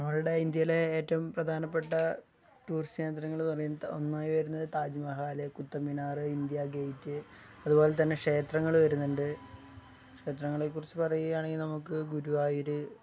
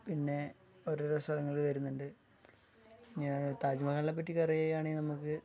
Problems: low volume